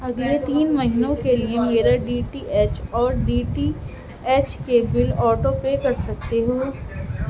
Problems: constant background noise